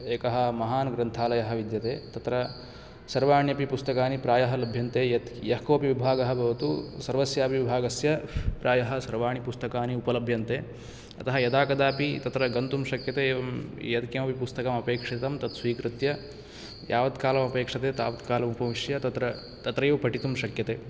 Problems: none marked